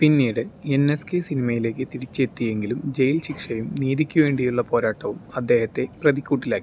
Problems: none marked